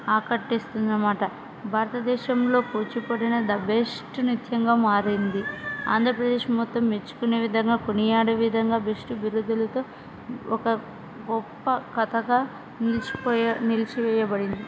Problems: constant background noise